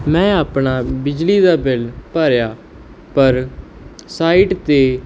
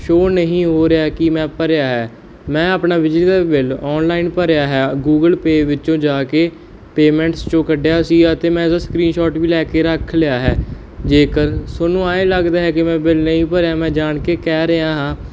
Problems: none marked